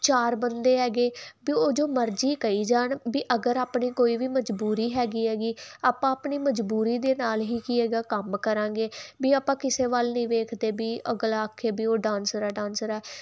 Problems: constant background noise